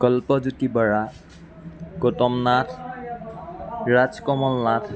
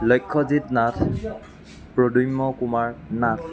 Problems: continuous background conversations